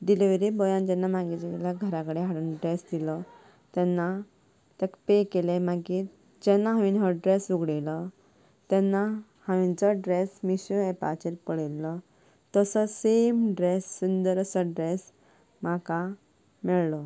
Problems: background sounds at intervals